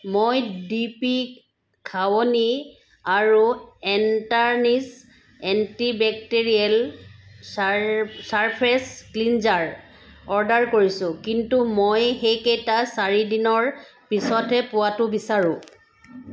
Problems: constant background noise